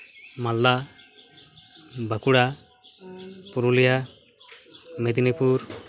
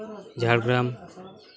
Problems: continuous background conversations